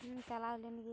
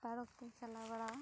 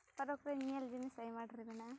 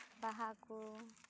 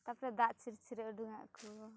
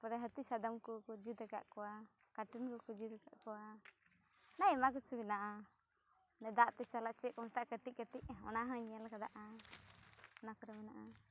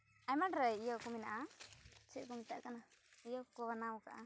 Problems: background sounds at intervals